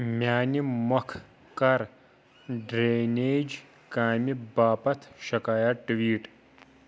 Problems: none marked